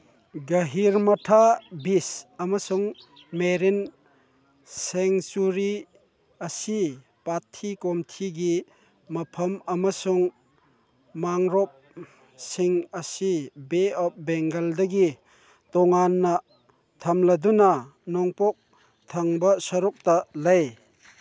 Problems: background sounds at intervals